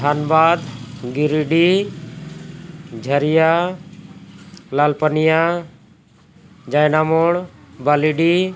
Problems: constant background noise